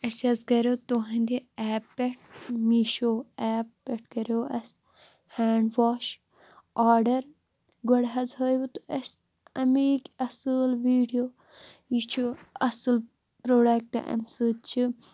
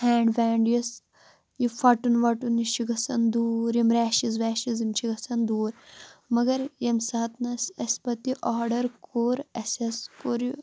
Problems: constant background noise